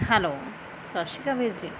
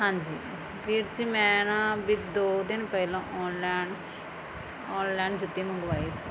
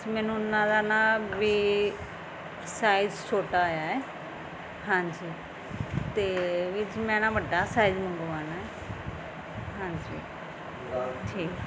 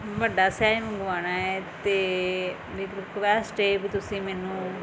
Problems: none marked